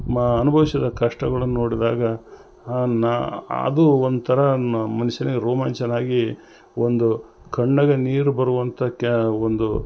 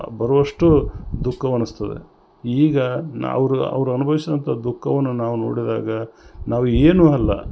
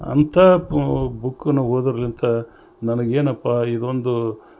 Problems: none marked